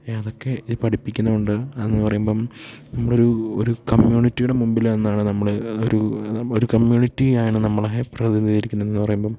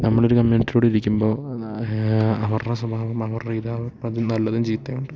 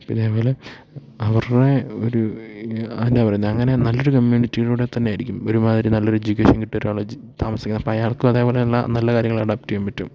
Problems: none marked